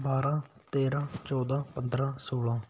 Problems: background sounds at intervals